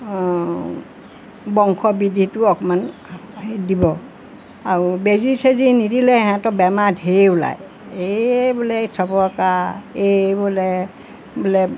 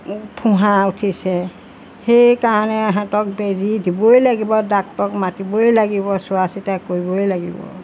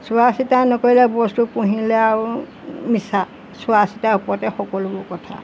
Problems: constant background noise